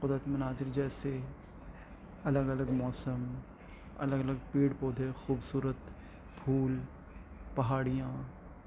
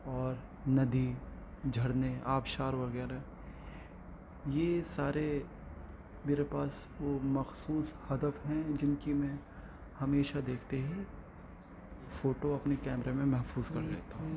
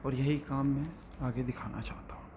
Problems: constant background noise